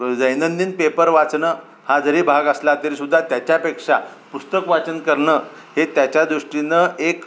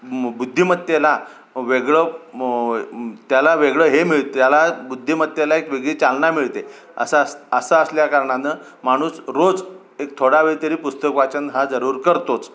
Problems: constant background noise